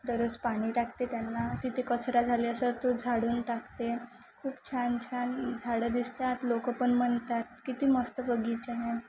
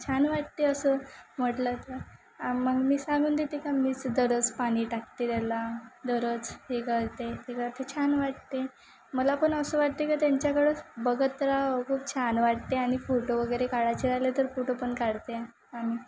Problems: constant background noise